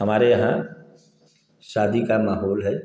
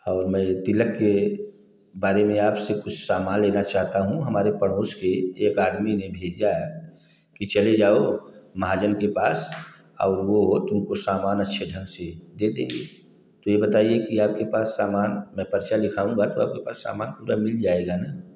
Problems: none marked